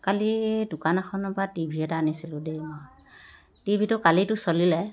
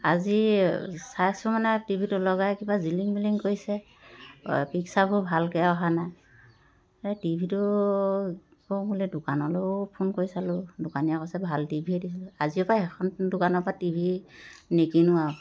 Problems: constant background noise